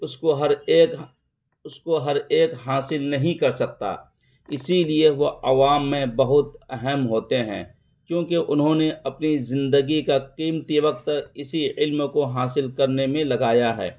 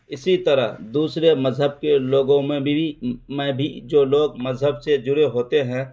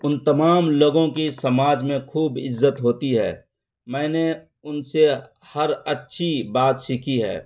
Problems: constant background noise